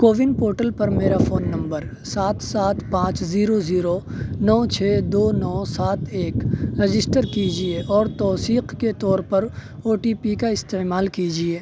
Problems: constant background noise